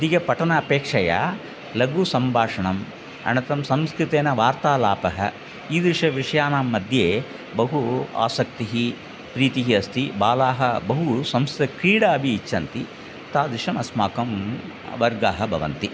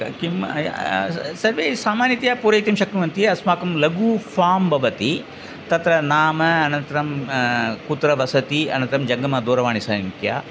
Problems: none marked